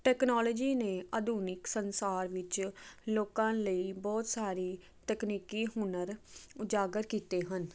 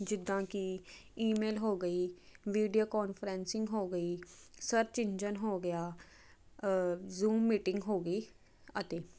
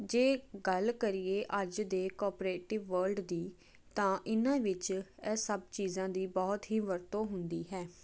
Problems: constant background noise